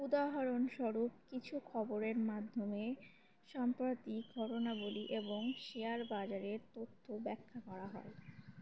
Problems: constant background noise